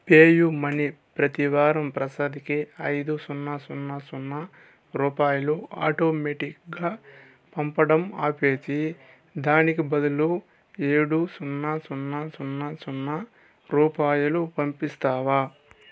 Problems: constant background noise